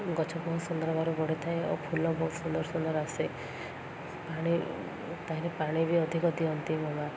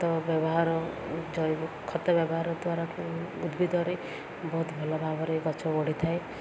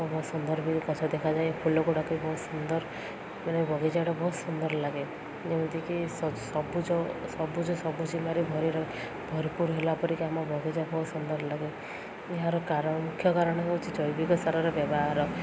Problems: constant background noise